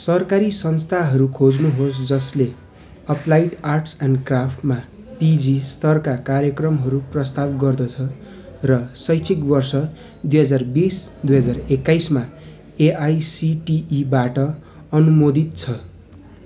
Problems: continuous background conversations